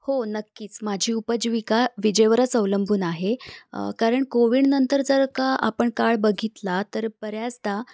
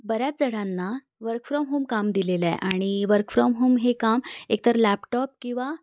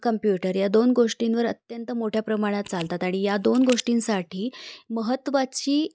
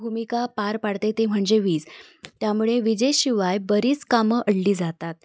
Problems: background sounds at intervals